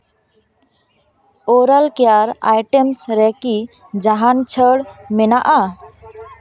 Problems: background sounds at intervals